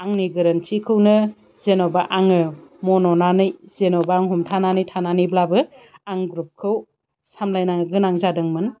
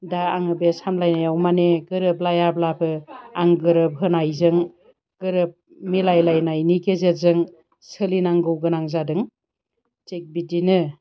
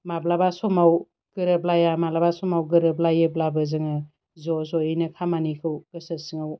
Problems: constant background noise